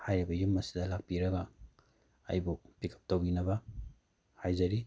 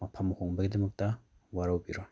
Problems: background sounds at intervals